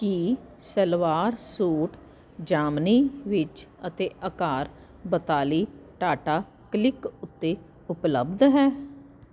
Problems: constant background noise